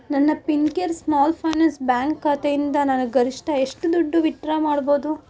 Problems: none marked